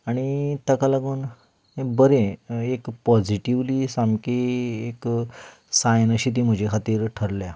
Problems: background sounds at intervals